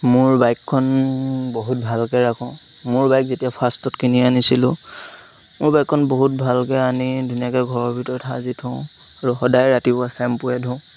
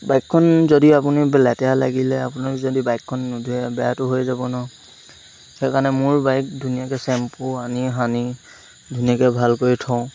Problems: constant background noise